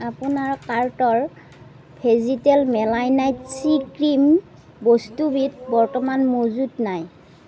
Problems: none marked